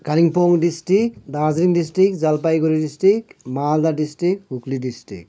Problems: none marked